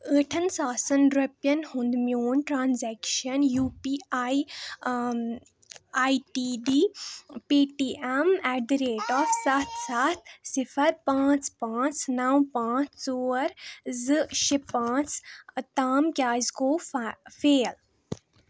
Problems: none marked